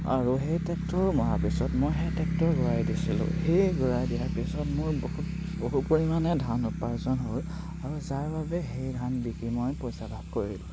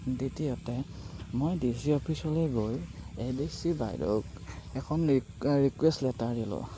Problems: constant background noise